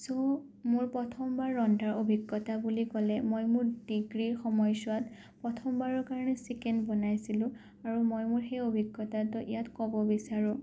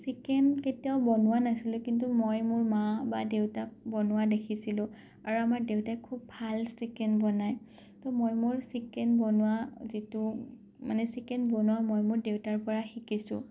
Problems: none marked